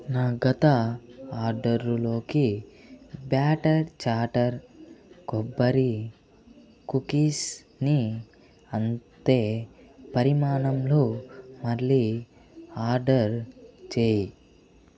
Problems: none marked